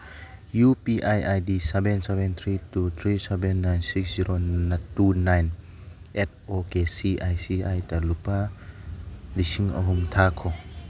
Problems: background sounds at intervals